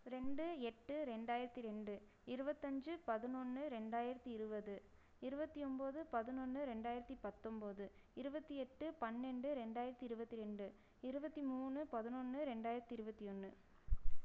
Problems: low volume